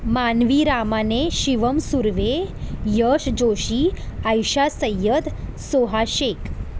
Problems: constant background noise